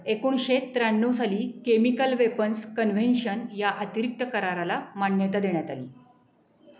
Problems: constant background noise